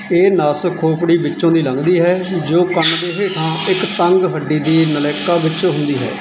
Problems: background sounds at intervals